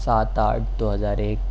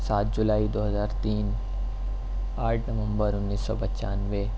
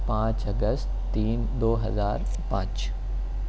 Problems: none marked